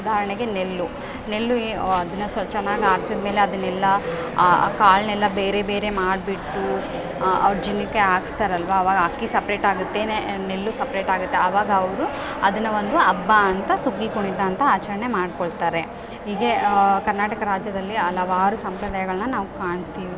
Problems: background sounds at intervals